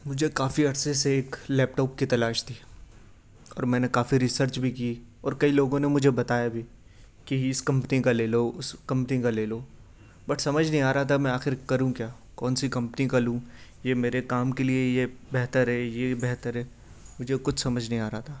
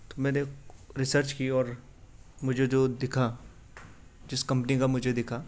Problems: none marked